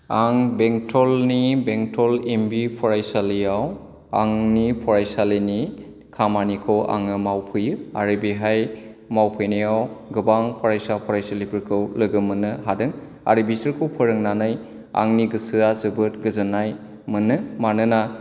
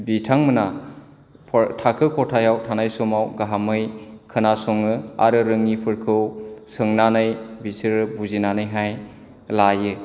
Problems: low volume